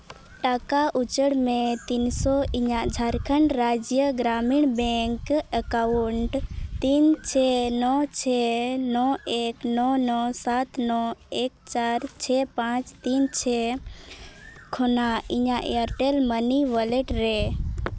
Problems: constant background noise